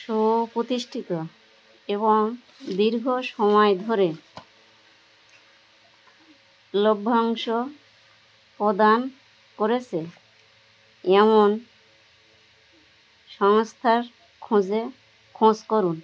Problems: constant background noise